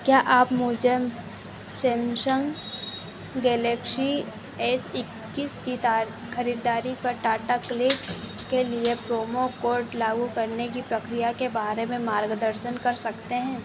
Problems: constant background noise